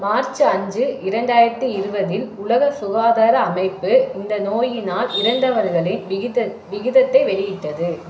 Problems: background sounds at intervals